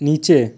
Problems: constant background noise